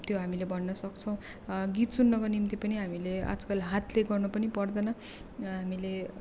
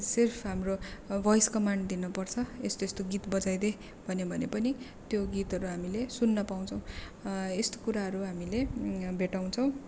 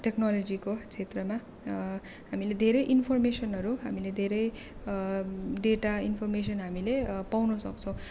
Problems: none marked